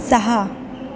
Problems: none marked